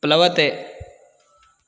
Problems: none marked